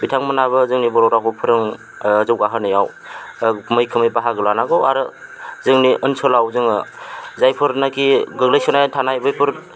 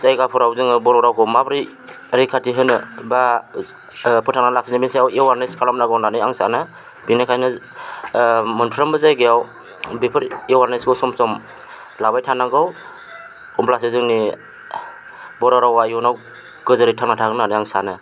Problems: constant background noise